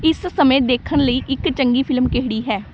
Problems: background sounds at intervals